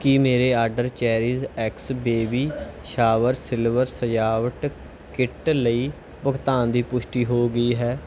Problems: background sounds at intervals